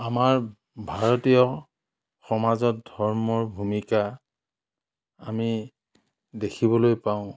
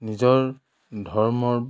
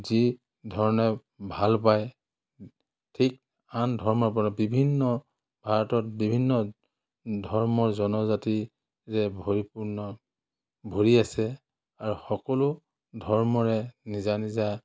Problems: none marked